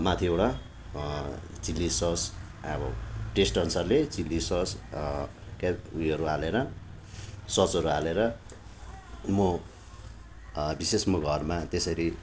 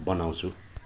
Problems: constant background noise